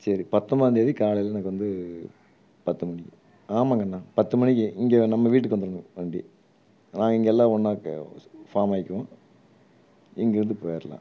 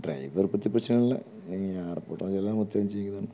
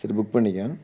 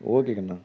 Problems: low volume